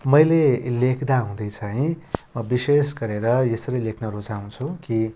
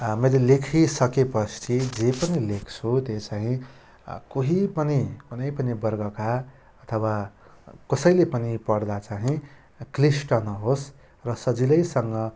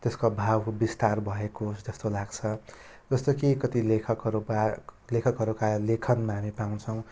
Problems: constant background noise